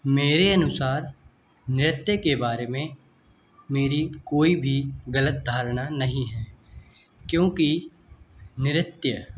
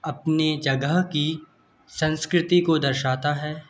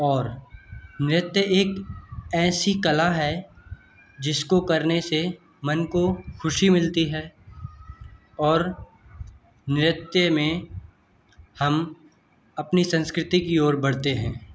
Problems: constant background noise